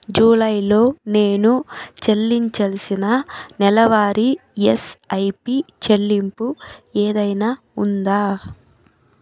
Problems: none marked